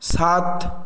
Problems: constant background noise